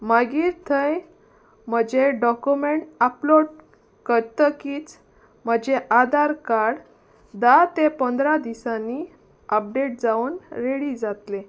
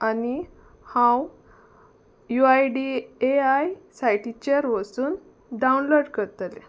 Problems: none marked